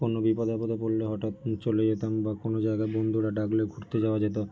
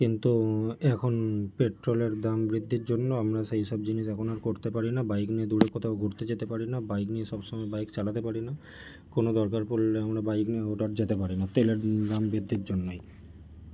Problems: background sounds at intervals